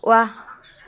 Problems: constant background noise